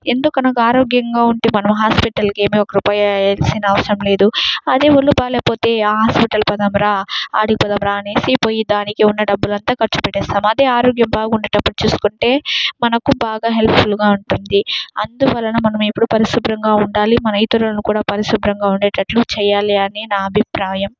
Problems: none marked